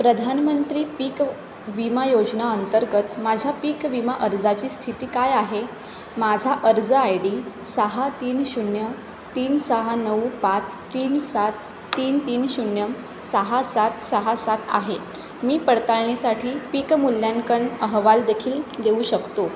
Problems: constant background noise